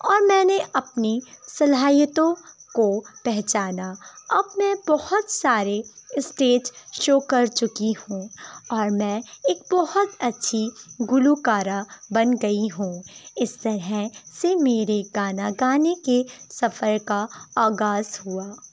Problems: constant background noise, background conversations at intervals